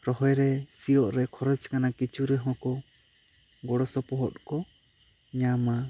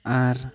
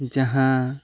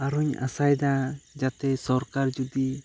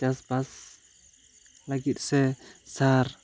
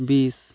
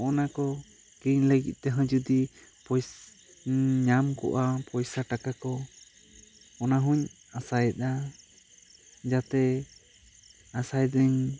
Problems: constant background noise